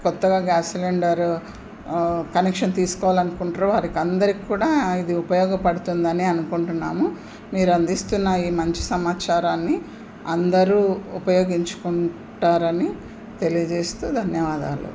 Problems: constant background noise